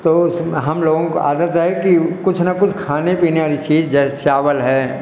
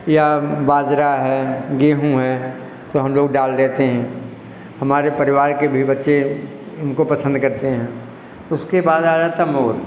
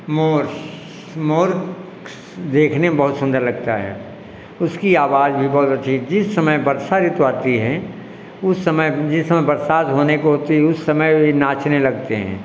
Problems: echo